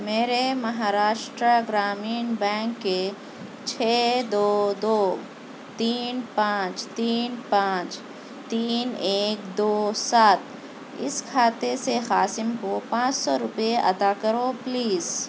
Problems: constant background noise